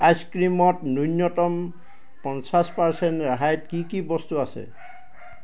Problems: background sounds at intervals